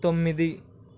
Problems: constant background noise